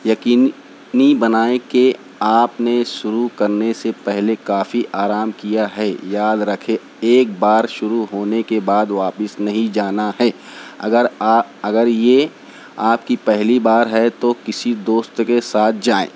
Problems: constant background noise